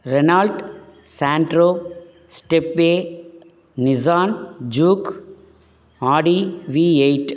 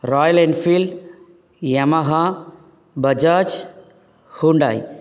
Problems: none marked